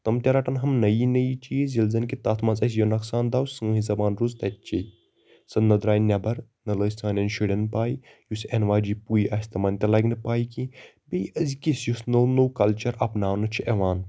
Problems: constant background noise